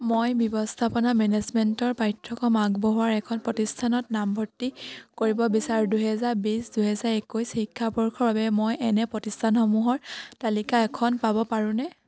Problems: none marked